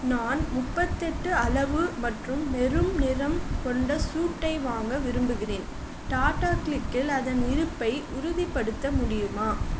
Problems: constant background noise